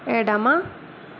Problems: constant background noise